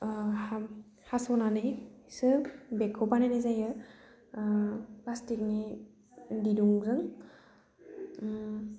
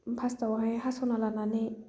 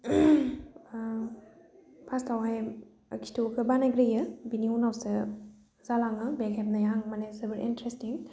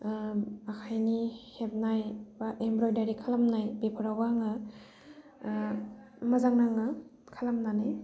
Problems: low volume